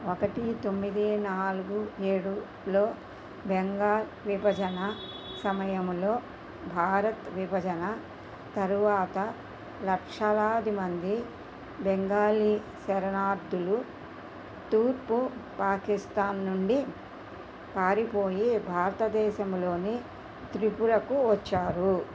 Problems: constant background noise